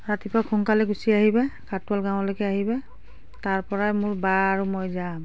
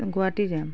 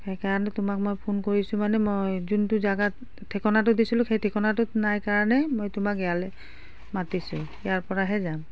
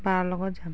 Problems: none marked